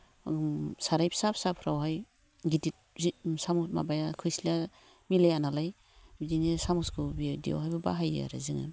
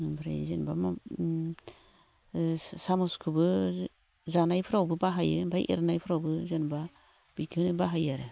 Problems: none marked